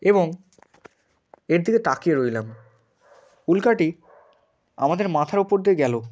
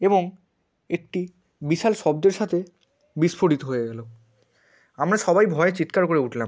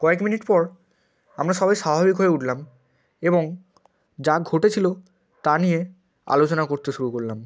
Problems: none marked